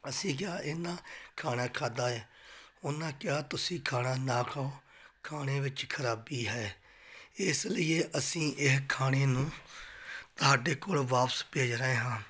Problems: background sounds at intervals